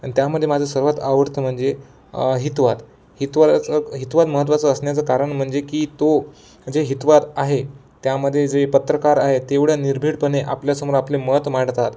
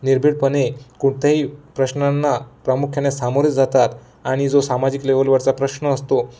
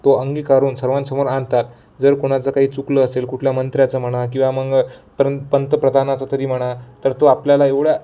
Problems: none marked